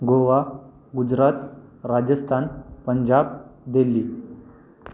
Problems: constant background noise